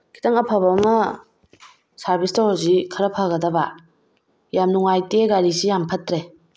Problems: none marked